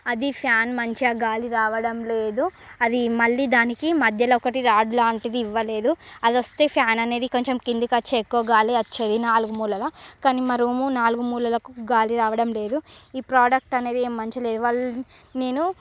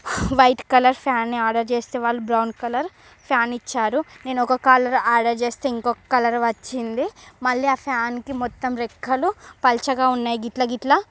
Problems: background sounds at intervals